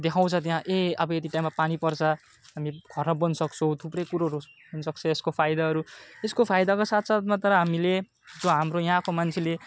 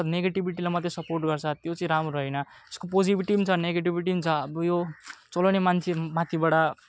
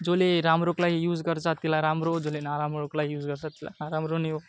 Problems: constant background noise